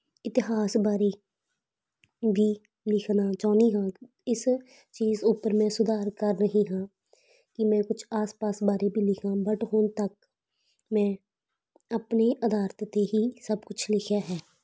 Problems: background sounds at intervals